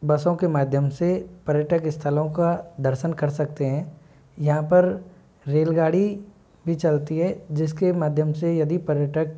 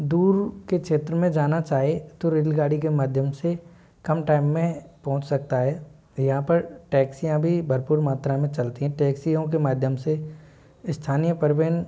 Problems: low volume